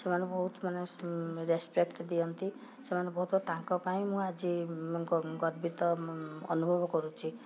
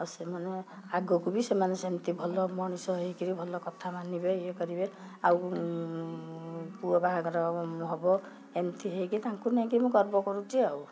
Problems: background sounds at intervals